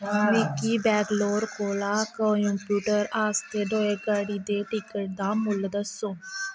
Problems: constant background noise